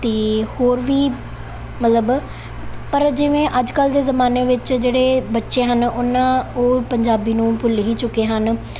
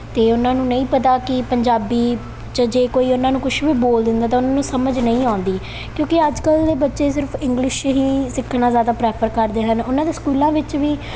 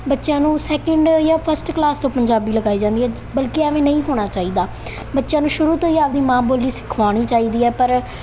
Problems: background sounds at intervals